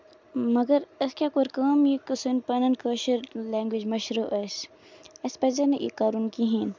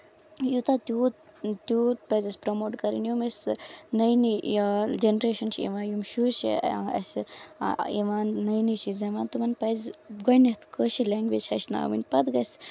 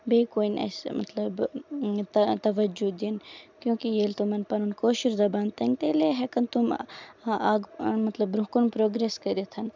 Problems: background sounds at intervals